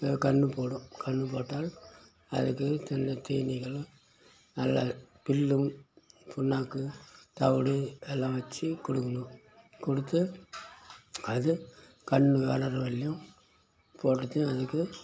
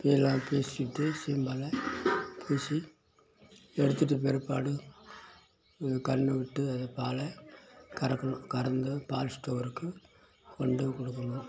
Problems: background sounds at intervals